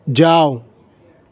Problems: none marked